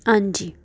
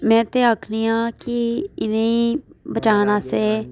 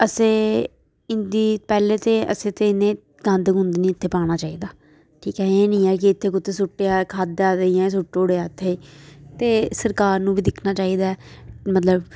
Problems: background conversations at intervals